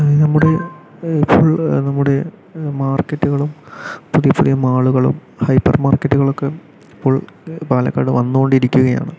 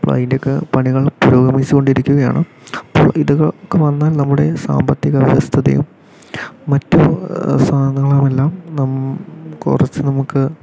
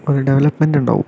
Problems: background sounds at intervals